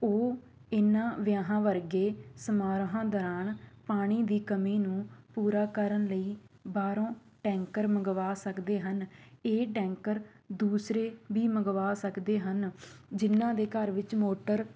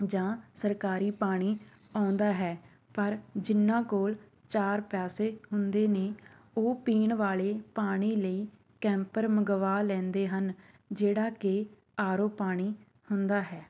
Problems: background sounds at intervals